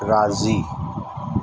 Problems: constant background noise